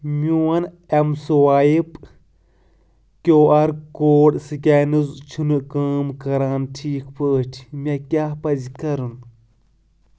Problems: none marked